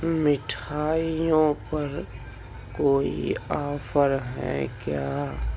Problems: none marked